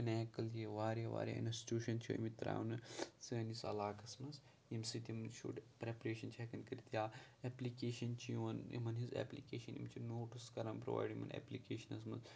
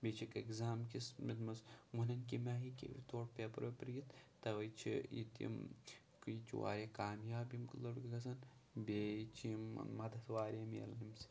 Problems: low volume